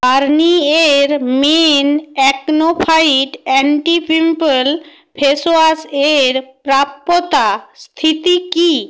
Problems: background sounds at intervals